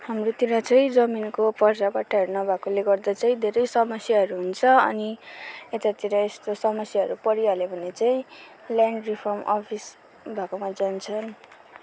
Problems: none marked